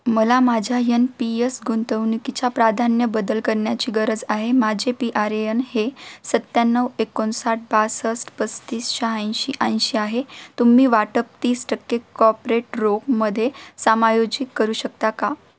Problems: constant background noise